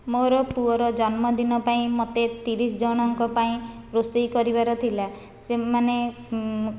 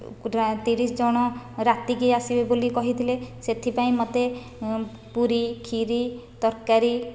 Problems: none marked